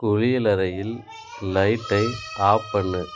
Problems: continuous background conversations